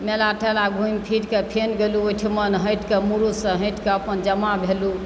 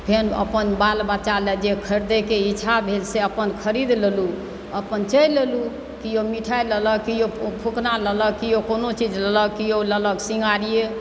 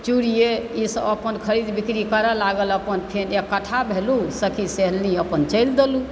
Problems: constant background noise